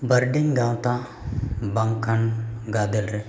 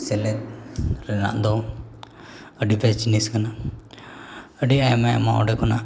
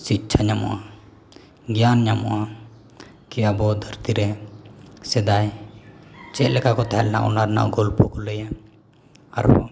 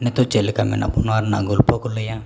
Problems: none marked